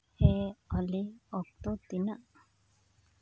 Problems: low volume